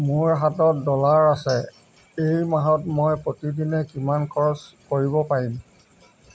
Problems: background sounds at intervals